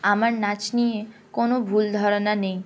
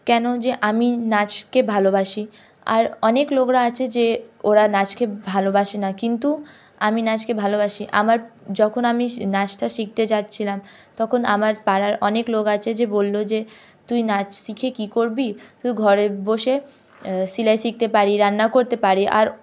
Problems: none marked